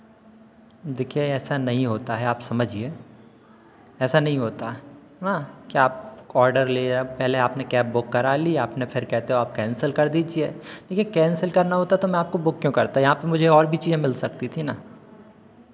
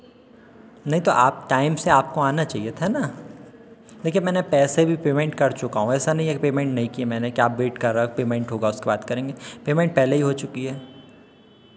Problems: constant background noise, echo